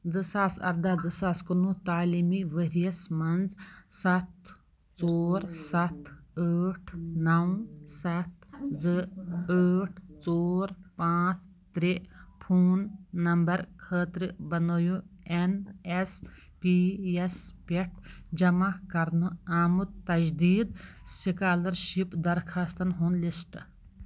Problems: background sounds at intervals